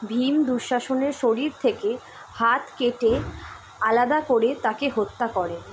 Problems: constant background noise